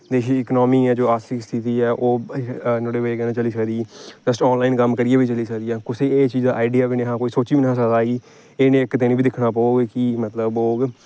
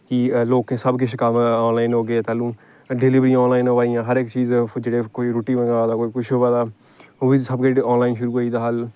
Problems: background sounds at intervals